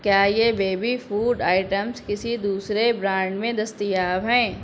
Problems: none marked